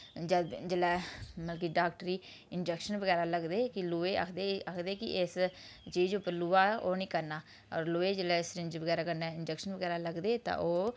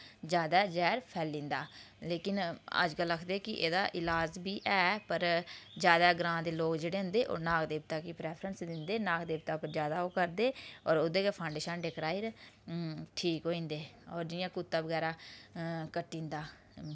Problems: background sounds at intervals